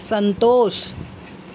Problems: none marked